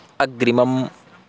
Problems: constant background noise